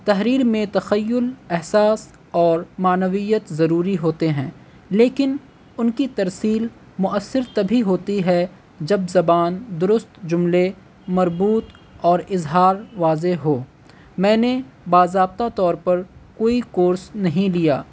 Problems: constant background noise